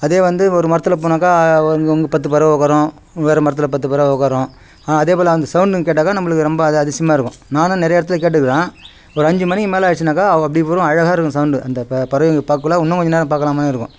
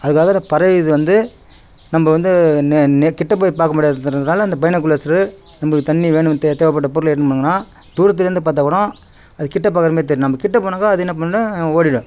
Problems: background sounds at intervals